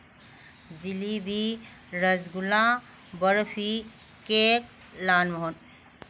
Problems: none marked